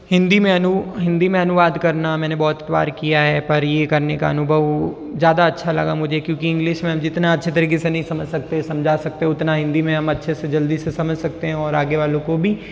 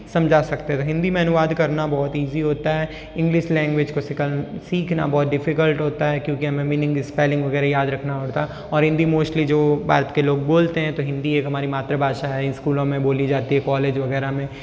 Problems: none marked